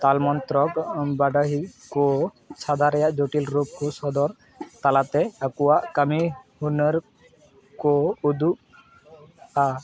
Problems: constant background noise